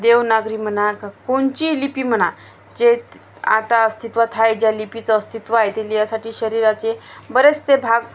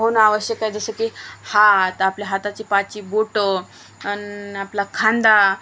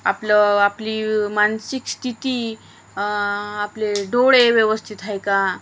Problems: constant background noise